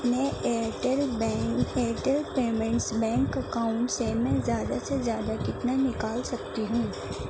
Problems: constant background noise, low volume